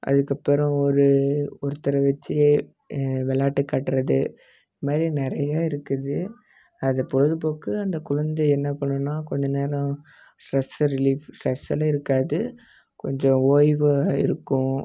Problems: none marked